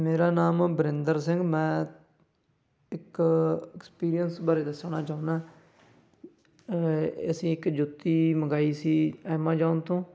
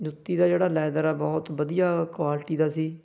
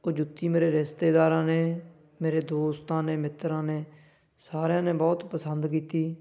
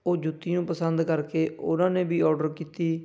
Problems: none marked